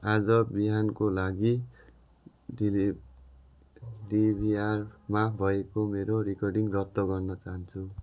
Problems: background sounds at intervals